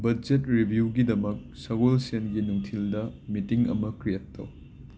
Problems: constant background noise